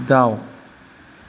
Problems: constant background noise